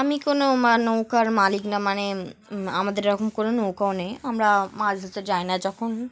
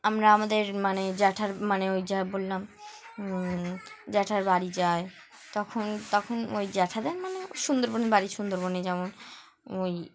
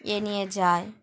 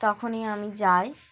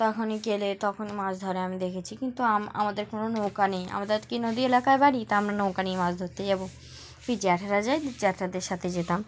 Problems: background sounds at intervals